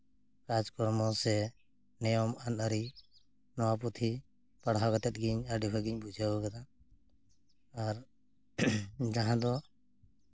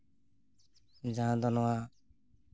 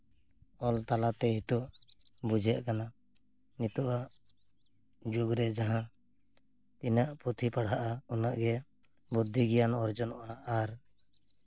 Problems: none marked